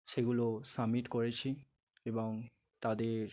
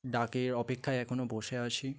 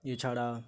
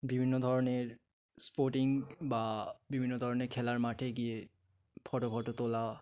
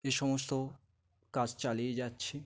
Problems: background sounds at intervals